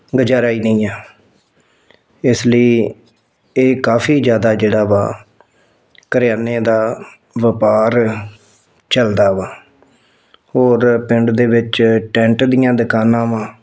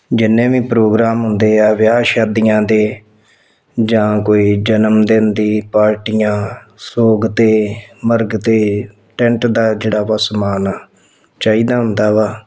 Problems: none marked